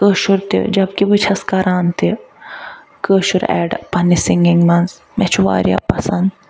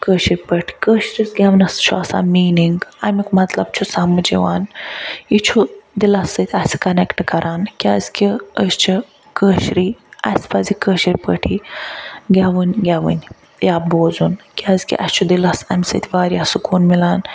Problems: none marked